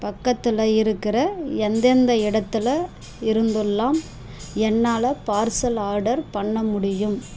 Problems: background sounds at intervals